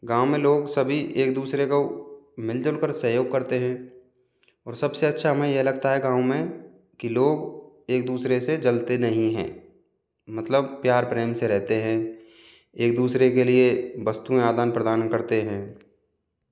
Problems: background sounds at intervals